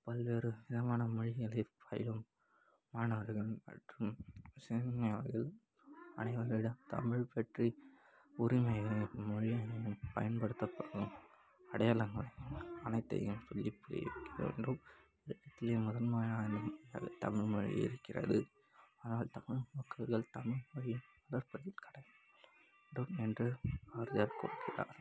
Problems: constant background noise